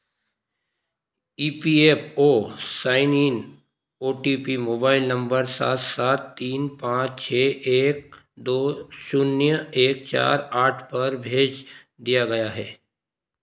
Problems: constant background noise